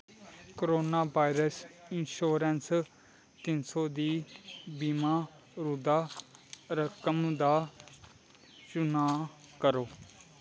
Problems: constant background noise